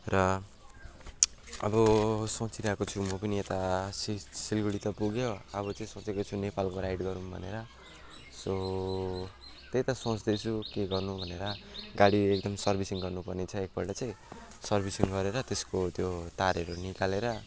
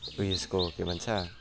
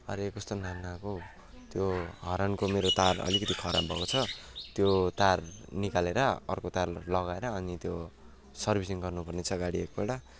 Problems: constant background noise